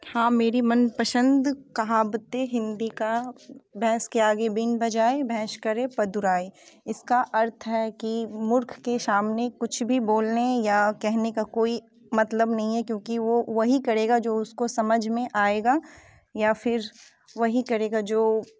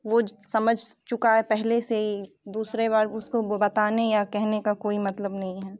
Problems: background sounds at intervals